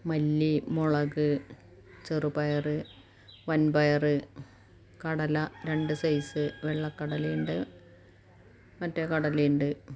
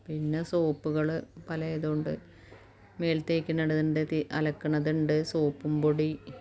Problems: low volume